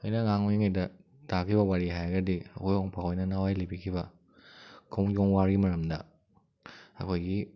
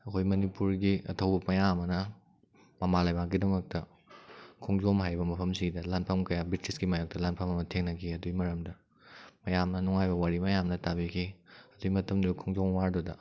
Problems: none marked